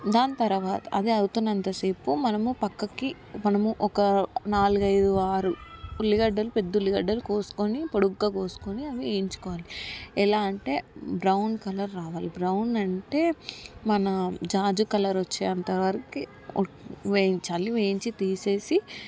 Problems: background sounds at intervals, background conversations at intervals